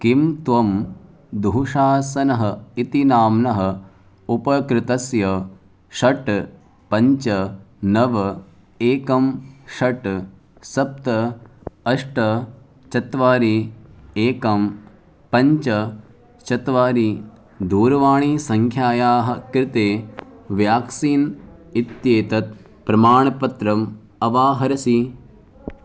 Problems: continuous background conversations